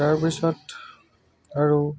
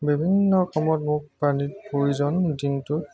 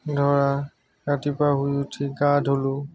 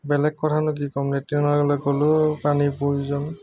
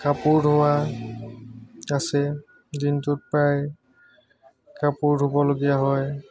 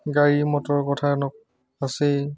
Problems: constant background noise, background conversations at intervals